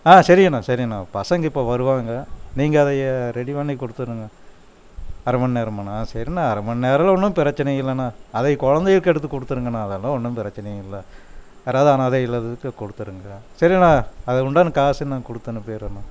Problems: none marked